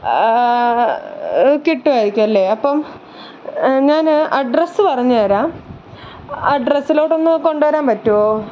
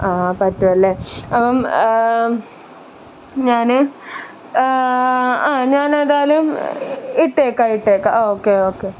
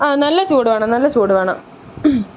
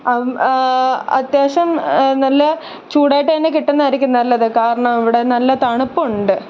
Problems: none marked